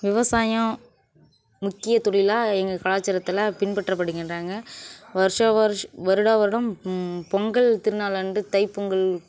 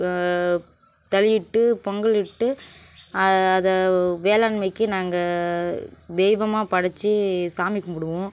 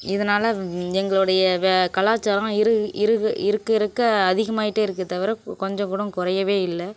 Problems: none marked